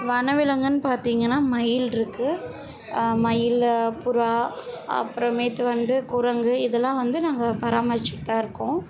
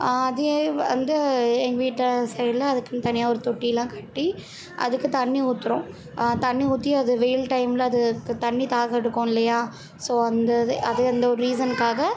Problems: continuous background conversations